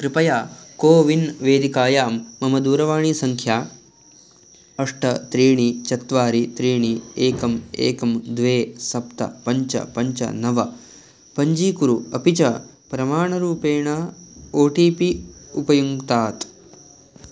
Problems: none marked